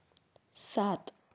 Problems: none marked